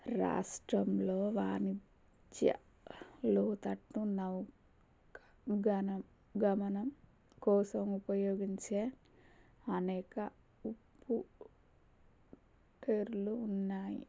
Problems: none marked